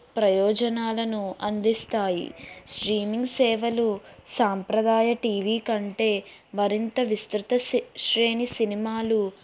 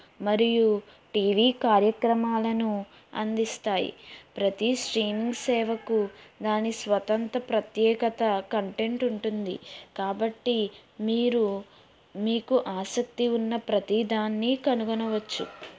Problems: background sounds at intervals